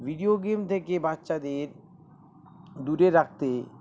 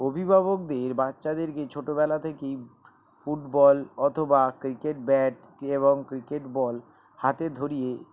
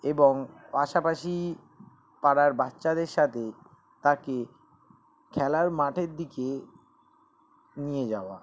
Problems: constant background noise